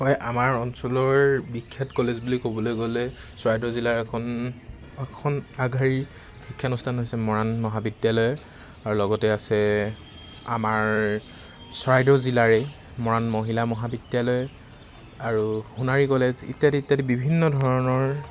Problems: constant background noise